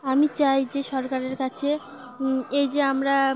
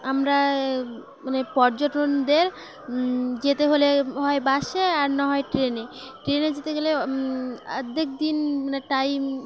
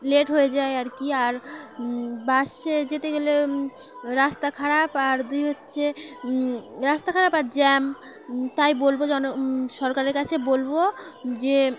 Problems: constant background noise